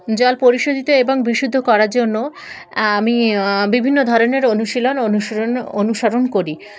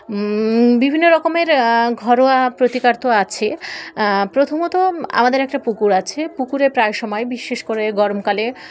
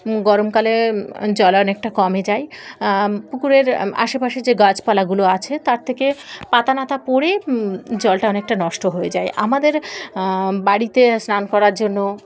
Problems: none marked